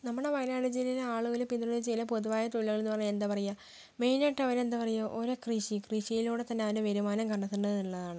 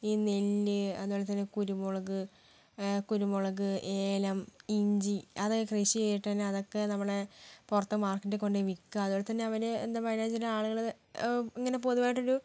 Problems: low volume